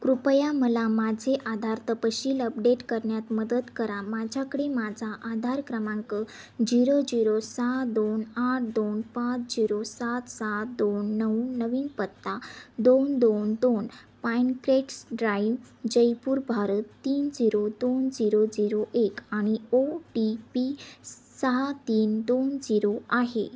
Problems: none marked